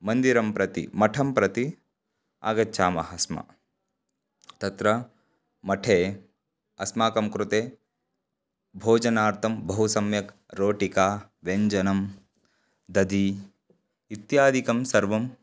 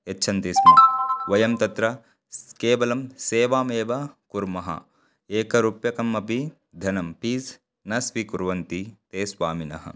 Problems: background sounds at intervals